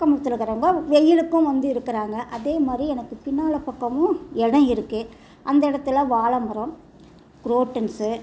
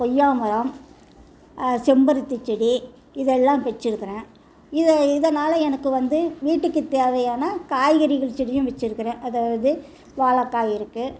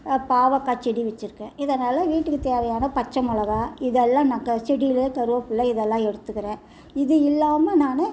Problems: background conversations at intervals